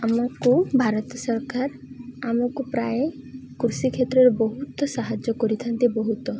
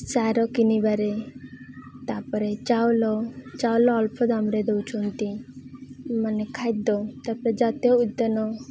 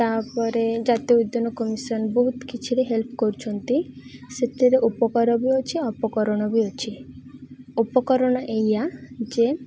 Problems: constant background noise, continuous background conversations